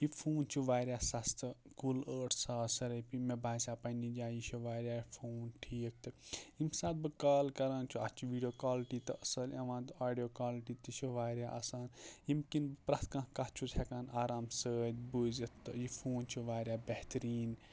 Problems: none marked